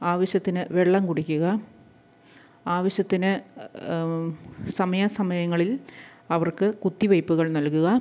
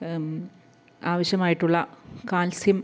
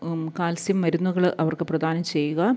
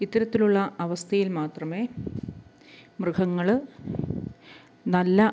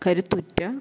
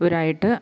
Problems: background sounds at intervals, low volume